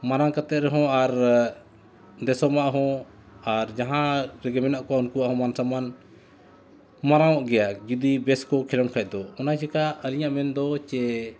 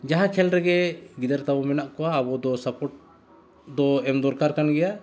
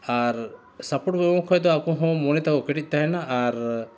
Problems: constant background noise